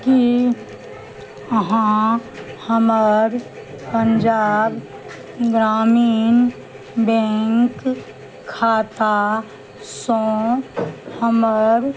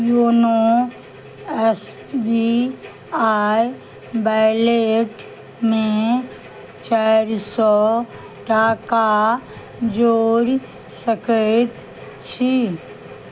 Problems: none marked